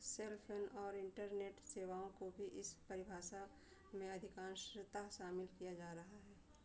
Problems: constant background noise